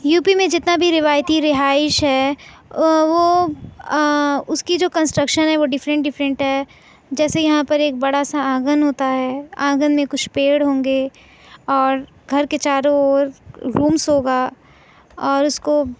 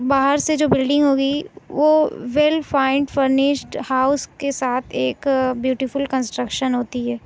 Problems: none marked